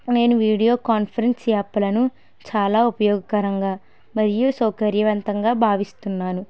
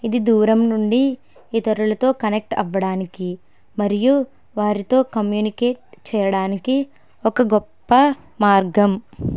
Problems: none marked